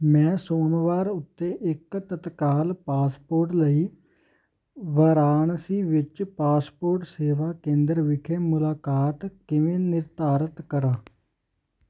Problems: constant background noise